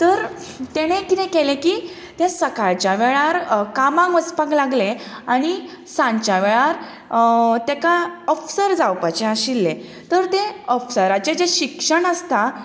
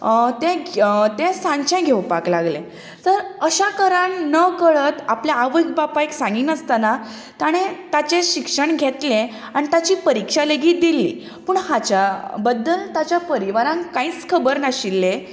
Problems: none marked